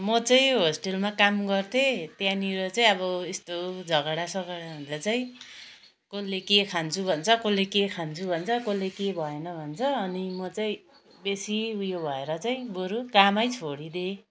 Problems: none marked